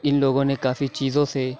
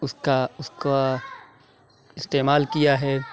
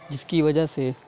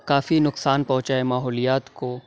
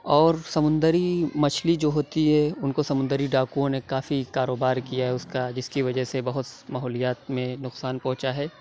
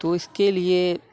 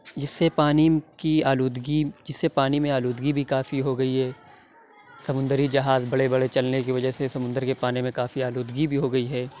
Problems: none marked